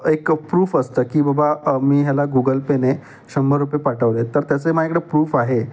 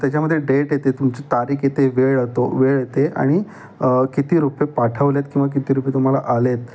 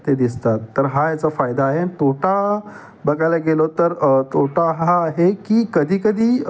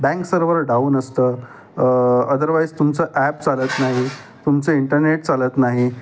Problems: none marked